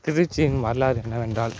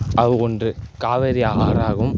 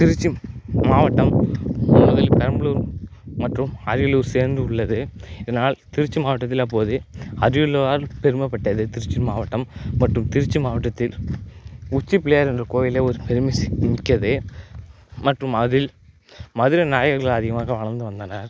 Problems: background sounds at intervals